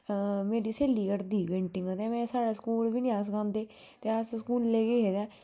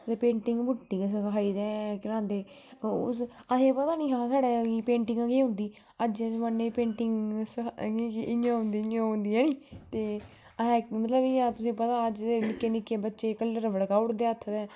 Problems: none marked